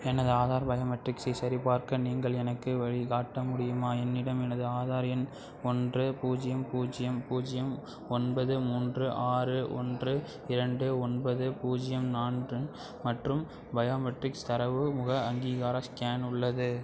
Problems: background sounds at intervals